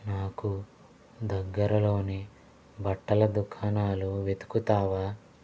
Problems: constant background noise